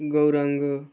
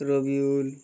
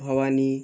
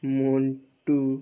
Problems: constant background noise